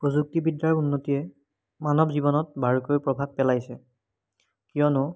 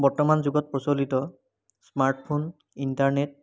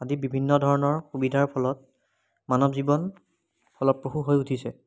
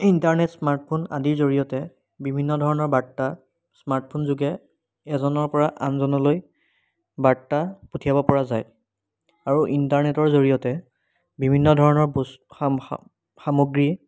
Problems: background sounds at intervals